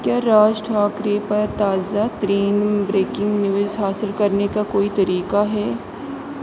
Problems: constant background noise